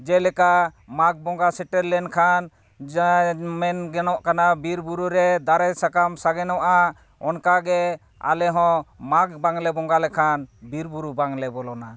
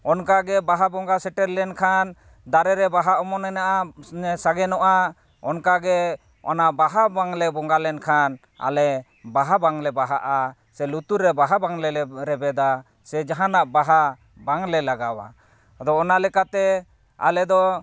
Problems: none marked